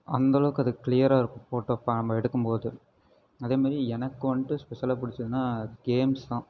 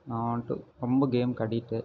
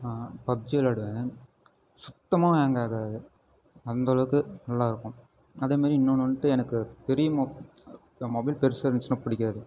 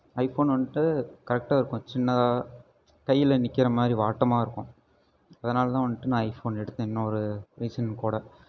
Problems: none marked